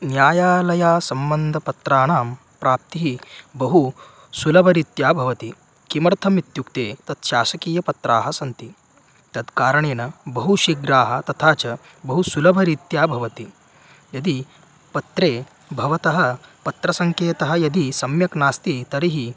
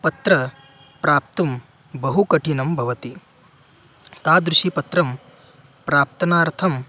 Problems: background sounds at intervals